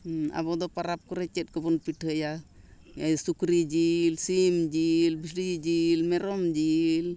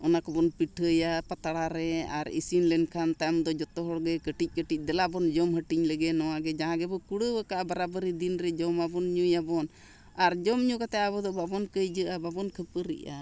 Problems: none marked